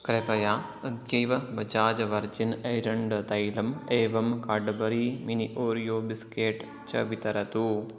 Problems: background conversations at intervals